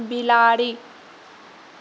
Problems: background sounds at intervals, low volume